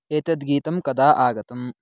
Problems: none marked